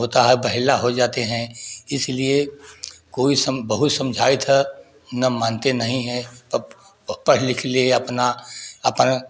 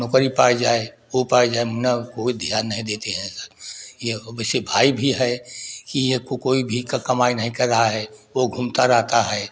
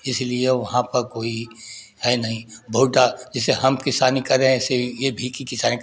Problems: background sounds at intervals